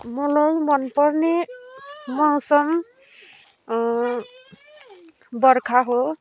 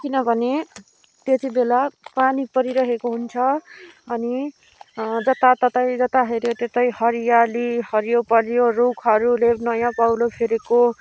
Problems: none marked